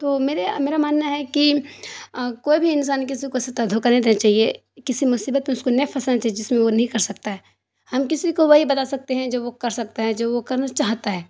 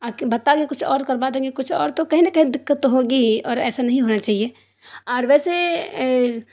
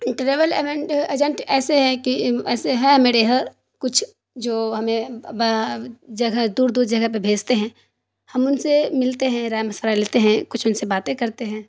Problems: none marked